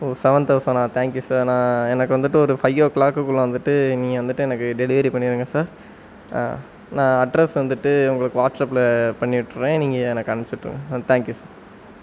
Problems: none marked